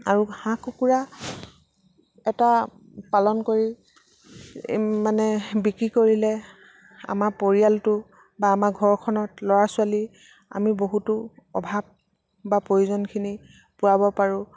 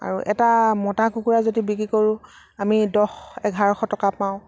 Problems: background sounds at intervals